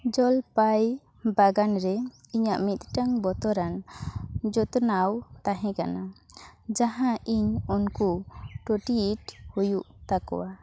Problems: background sounds at intervals